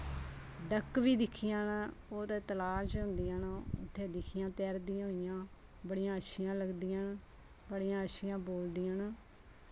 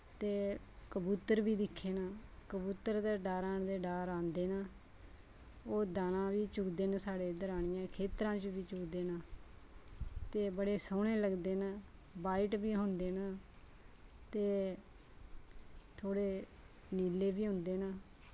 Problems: none marked